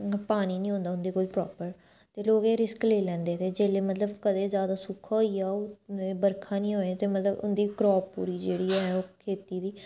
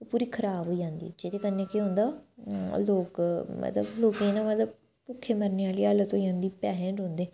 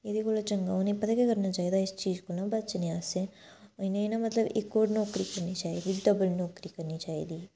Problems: background sounds at intervals